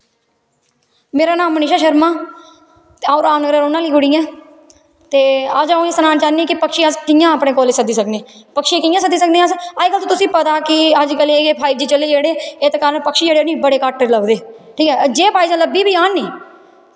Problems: constant background noise, echo